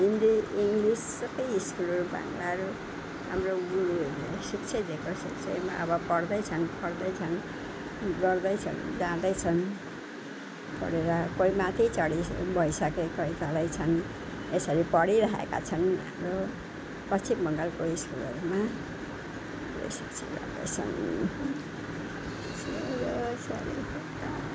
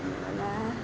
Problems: none marked